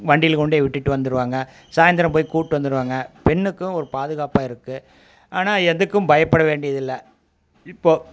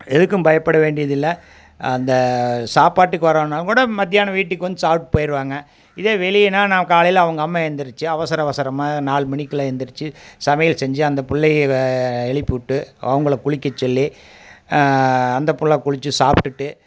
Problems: none marked